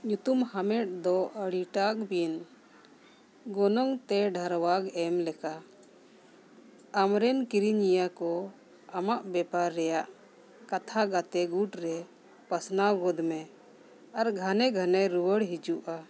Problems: none marked